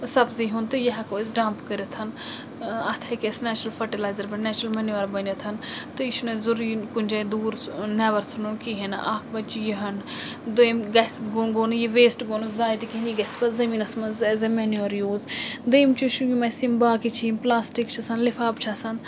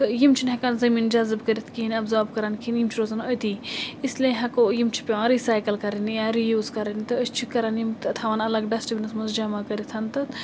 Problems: constant background noise